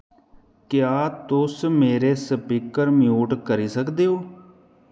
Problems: echo